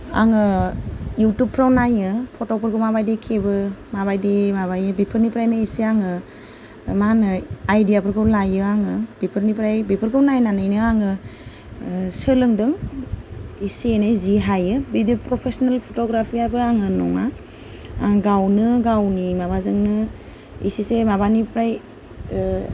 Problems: low volume